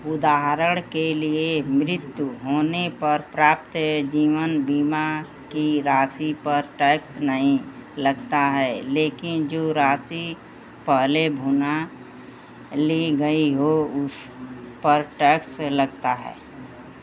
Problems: none marked